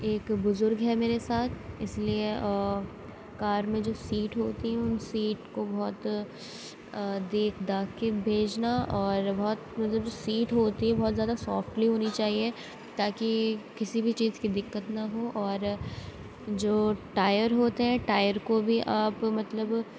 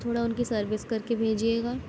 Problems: none marked